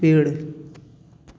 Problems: background sounds at intervals, background conversations at intervals